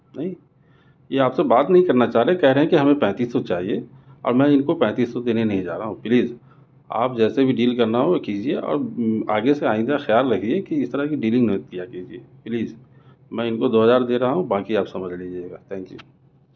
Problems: none marked